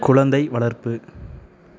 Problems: background conversations at intervals